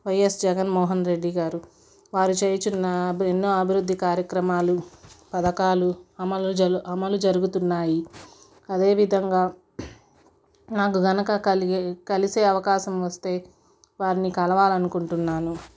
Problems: background sounds at intervals